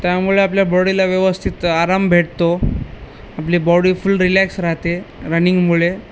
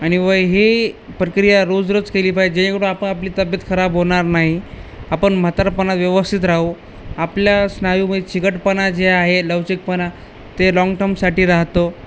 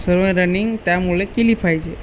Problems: constant background noise